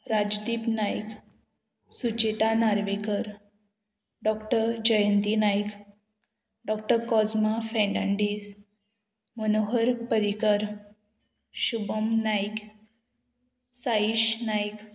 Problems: constant background noise